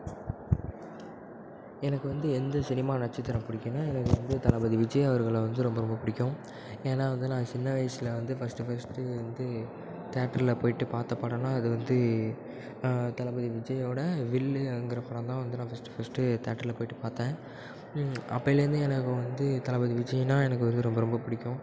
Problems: background sounds at intervals